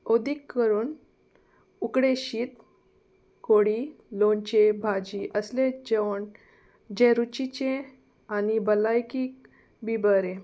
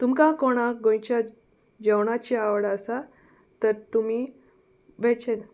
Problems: constant background noise